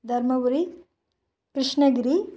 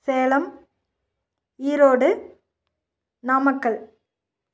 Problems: none marked